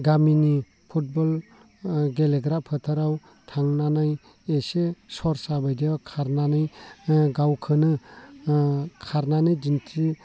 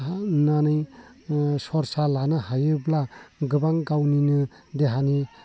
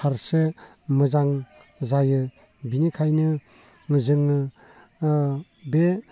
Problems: constant background noise